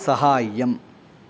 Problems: background conversations at intervals